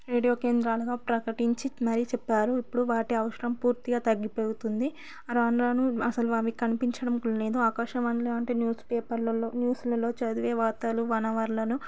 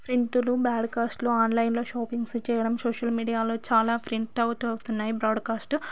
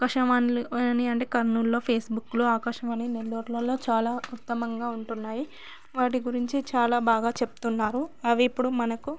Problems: none marked